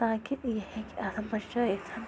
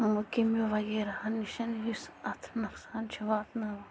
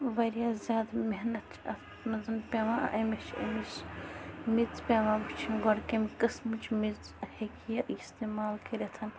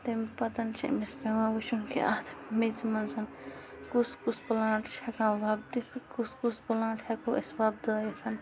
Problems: constant background noise